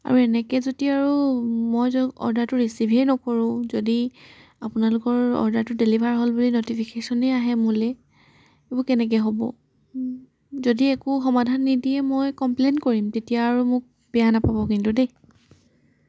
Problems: background sounds at intervals